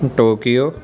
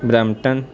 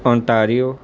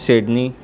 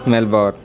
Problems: constant background noise